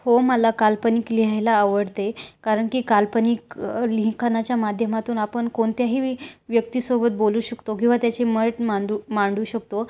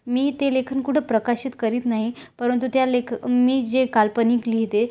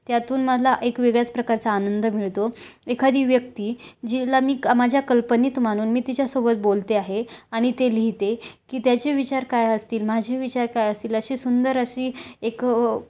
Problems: none marked